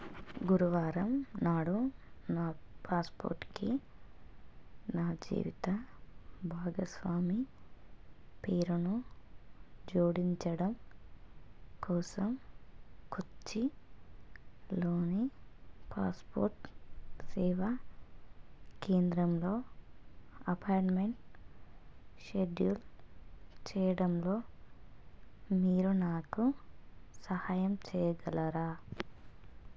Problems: low volume